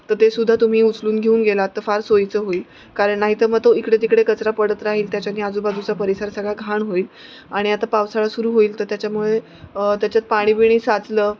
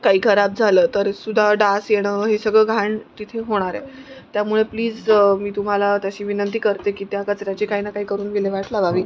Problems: none marked